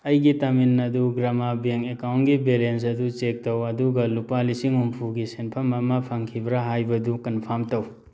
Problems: background sounds at intervals